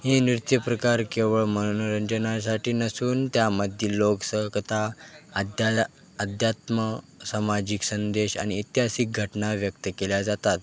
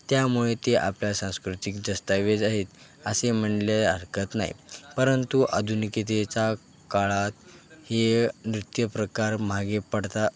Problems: constant background noise, background conversations at intervals